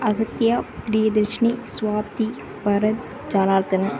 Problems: constant background noise